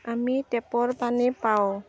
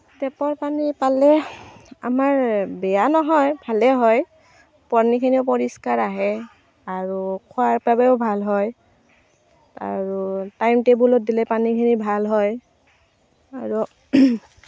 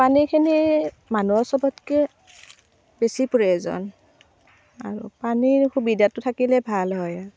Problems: constant background noise